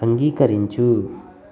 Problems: none marked